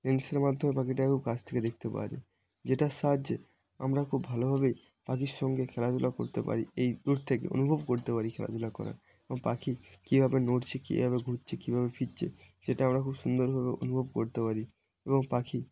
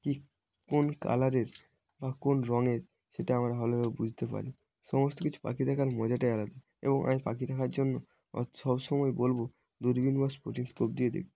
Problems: constant background noise